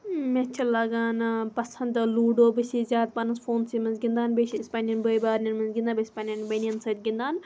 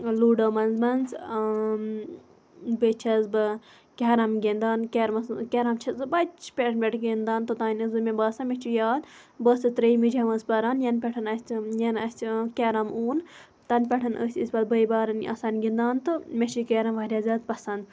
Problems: background sounds at intervals